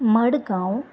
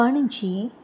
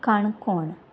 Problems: constant background noise